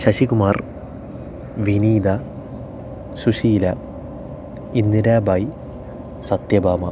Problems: none marked